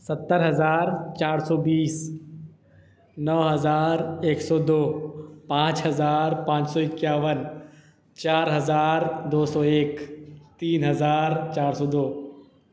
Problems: constant background noise, echo